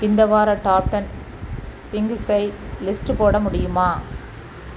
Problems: constant background noise